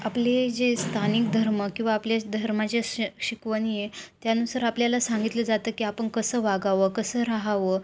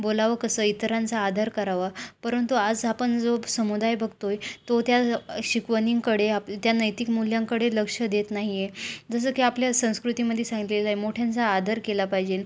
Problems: constant background noise